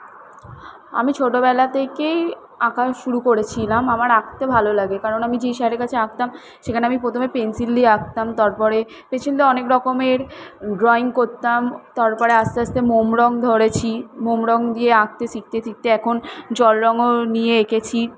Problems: none marked